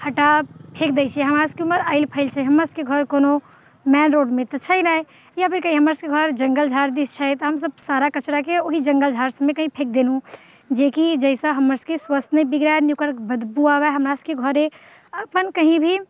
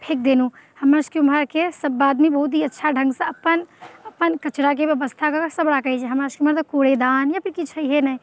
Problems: none marked